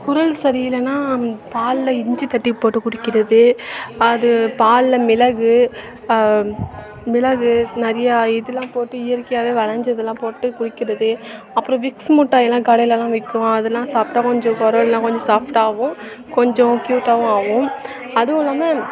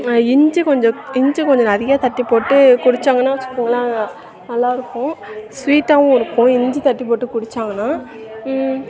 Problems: constant background noise, continuous background conversations